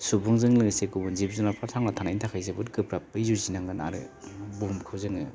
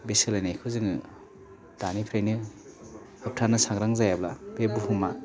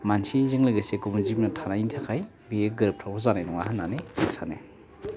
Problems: none marked